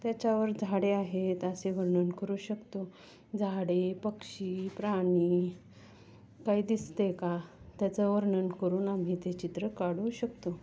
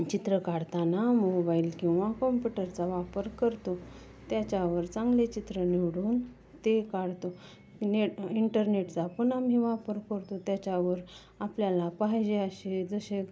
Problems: none marked